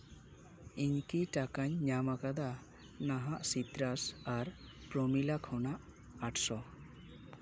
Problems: none marked